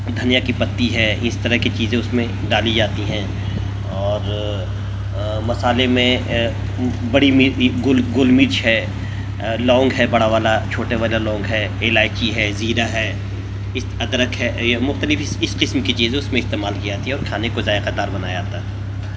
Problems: constant background noise